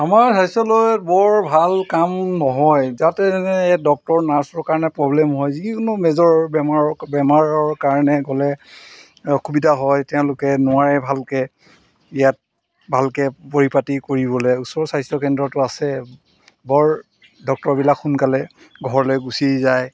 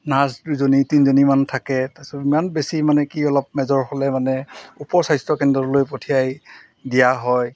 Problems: background sounds at intervals